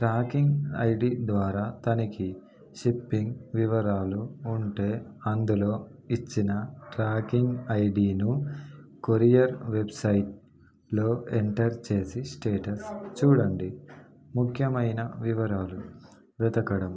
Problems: background conversations at intervals